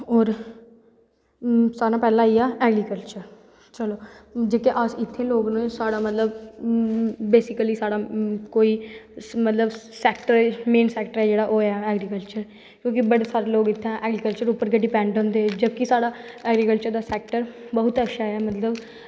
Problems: background sounds at intervals, echo